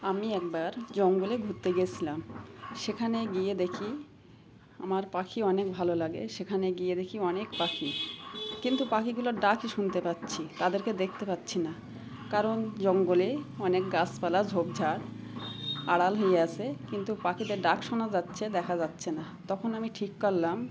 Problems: background sounds at intervals